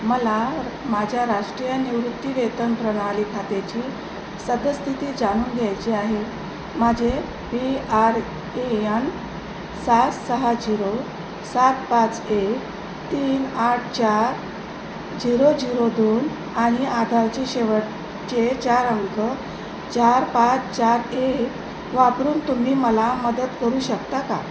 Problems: constant background noise